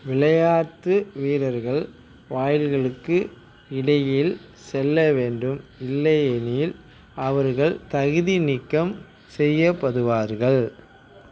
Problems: constant background noise